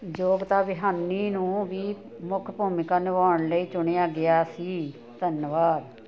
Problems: continuous background conversations